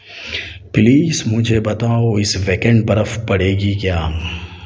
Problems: none marked